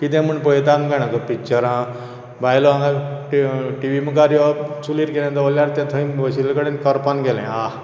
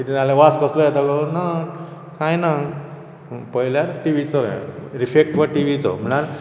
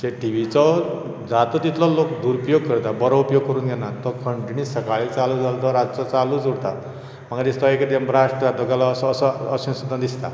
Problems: none marked